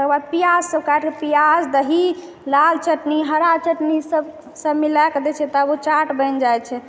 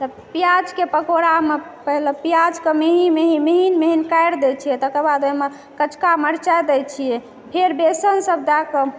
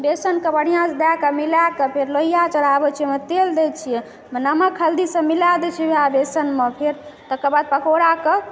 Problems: background sounds at intervals, background conversations at intervals